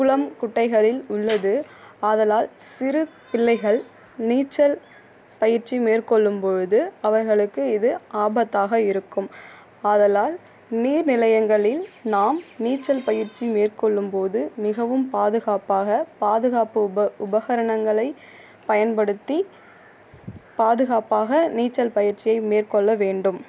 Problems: background sounds at intervals